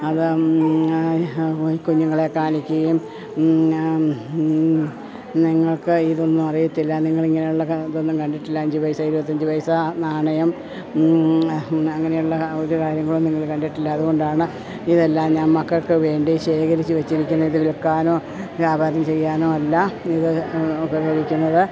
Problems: background sounds at intervals, low volume